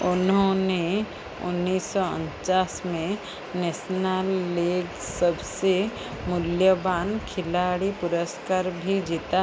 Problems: constant background noise